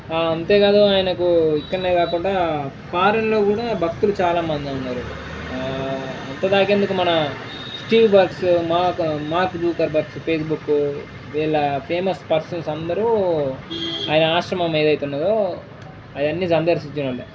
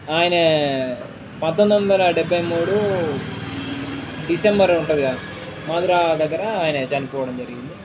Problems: background sounds at intervals